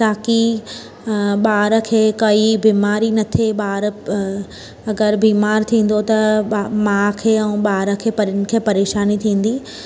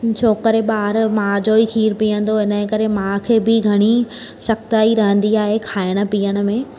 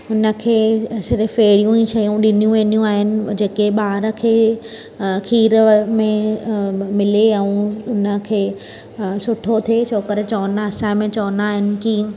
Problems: constant background noise